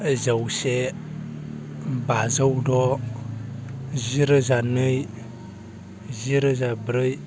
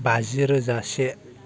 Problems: constant background noise